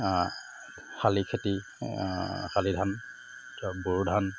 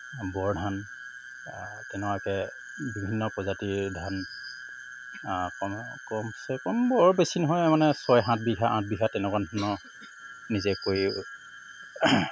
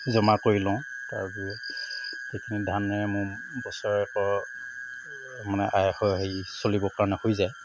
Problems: background sounds at intervals